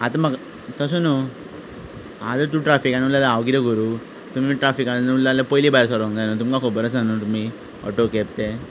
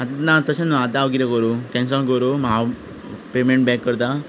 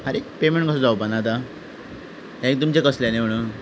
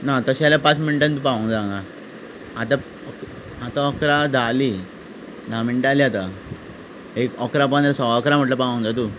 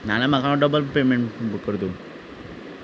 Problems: background sounds at intervals